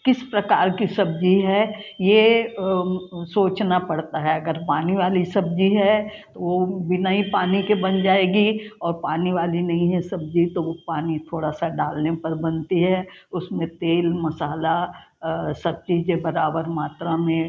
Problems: background conversations at intervals